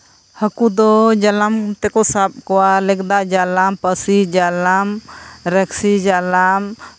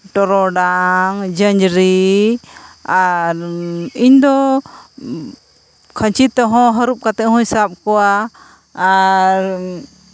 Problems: none marked